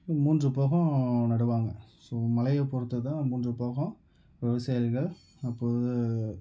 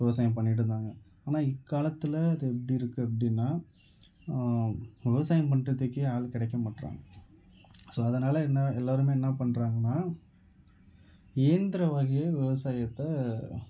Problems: background conversations at intervals